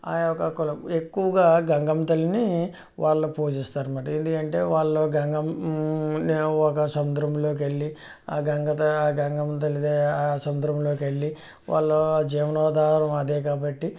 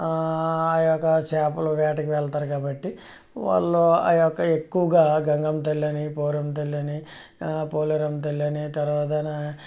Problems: none marked